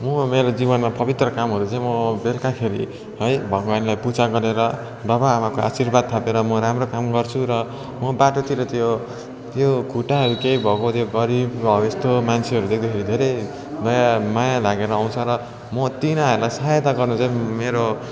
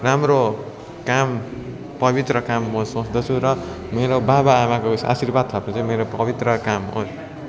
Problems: constant background noise, continuous background conversations